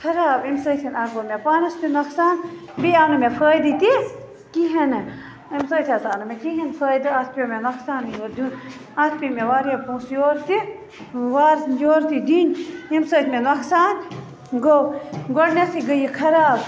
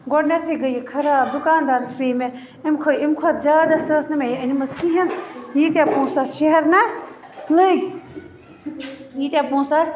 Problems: constant background noise